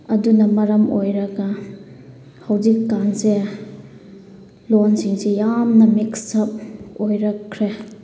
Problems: background sounds at intervals